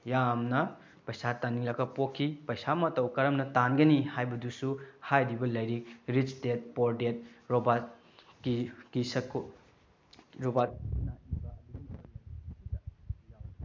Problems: background sounds at intervals